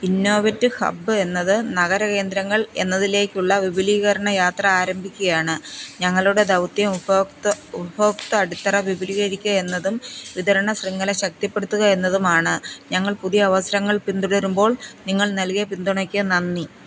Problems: background sounds at intervals